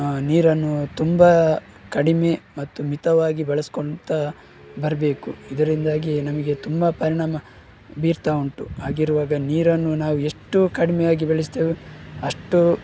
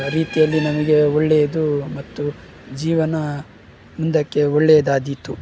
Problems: background sounds at intervals